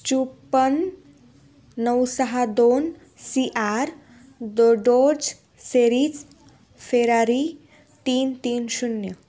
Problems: none marked